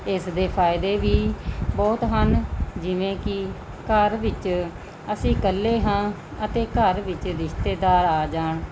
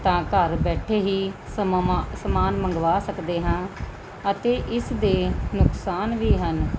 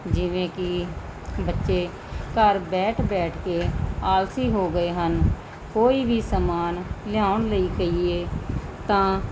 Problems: constant background noise